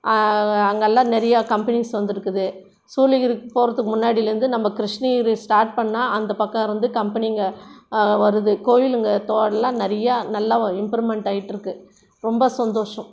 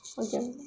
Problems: background sounds at intervals, background conversations at intervals